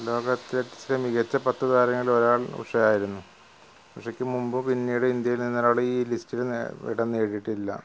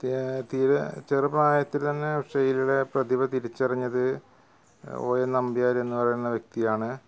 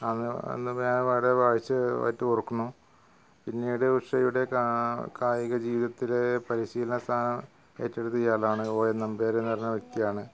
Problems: constant background noise